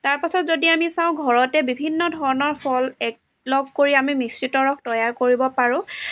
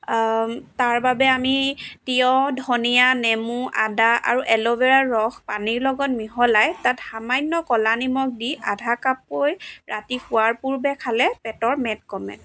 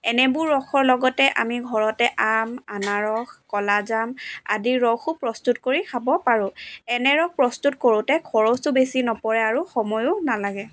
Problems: background sounds at intervals